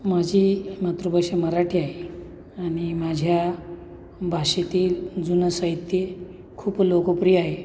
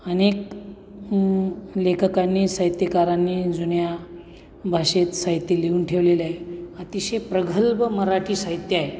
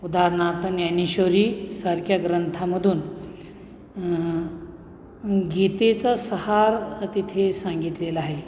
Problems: none marked